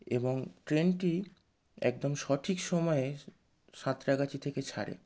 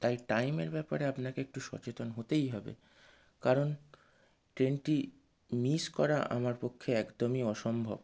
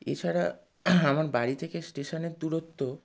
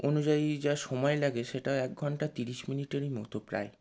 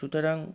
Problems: none marked